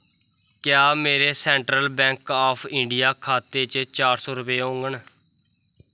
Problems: background sounds at intervals